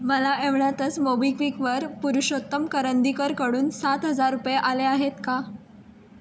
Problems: constant background noise